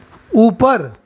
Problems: constant background noise